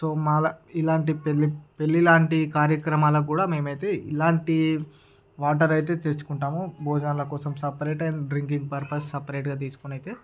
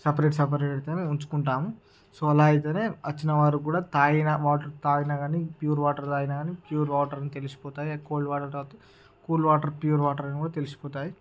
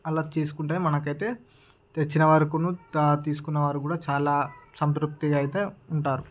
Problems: background conversations at intervals